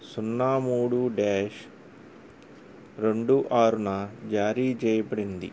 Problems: none marked